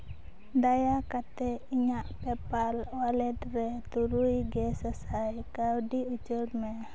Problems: none marked